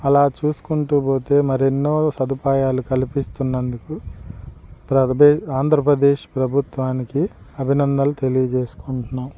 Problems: none marked